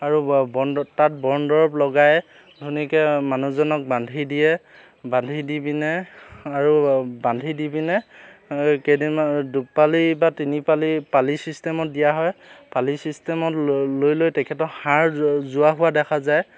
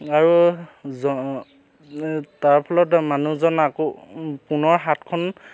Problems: constant background noise